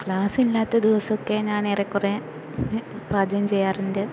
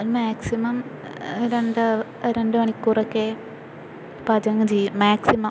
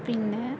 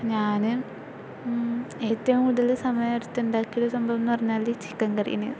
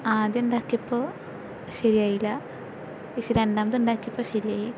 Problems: constant background noise